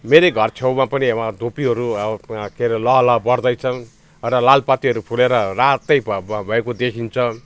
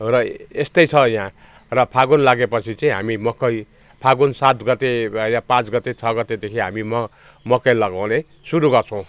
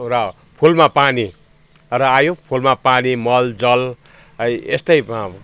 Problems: constant background noise